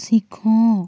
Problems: constant background noise